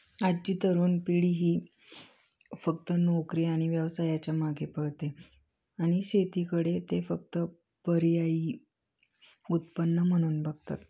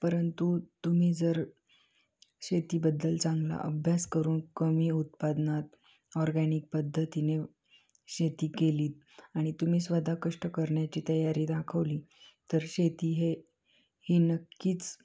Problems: background sounds at intervals